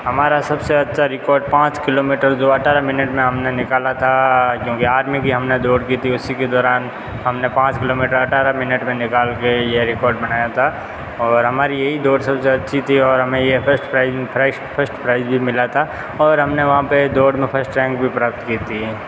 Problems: constant background noise